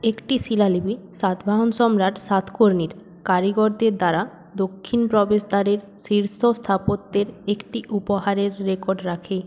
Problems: background sounds at intervals